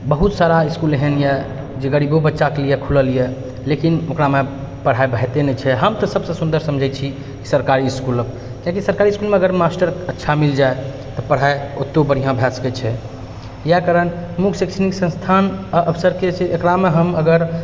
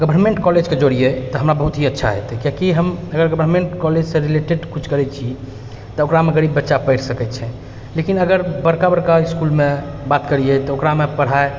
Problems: none marked